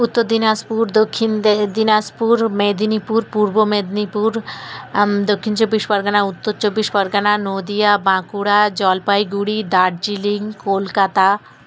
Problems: none marked